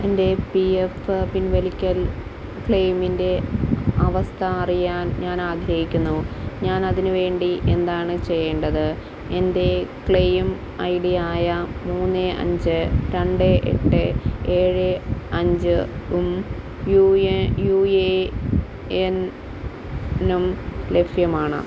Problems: constant background noise